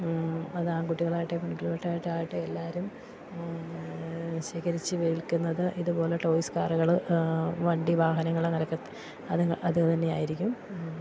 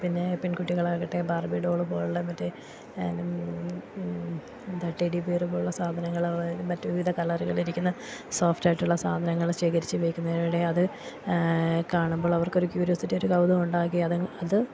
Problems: constant background noise, low volume